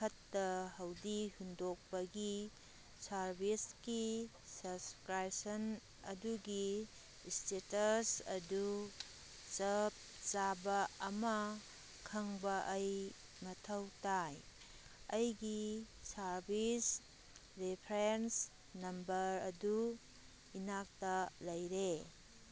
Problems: background sounds at intervals